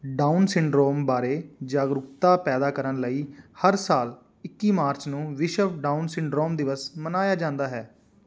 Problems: none marked